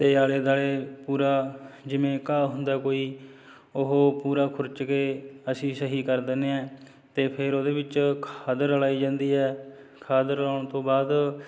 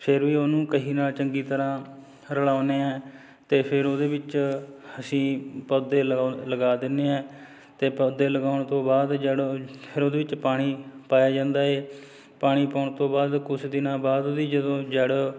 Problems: none marked